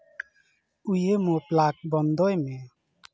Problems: background conversations at intervals